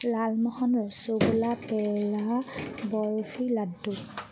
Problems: none marked